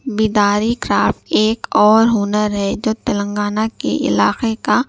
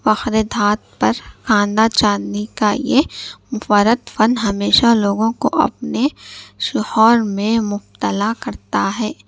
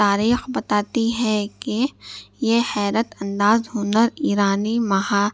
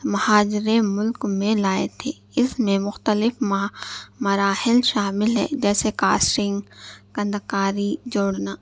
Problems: none marked